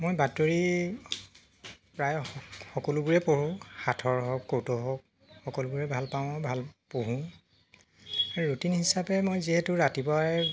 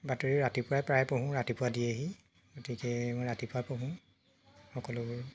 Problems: constant background noise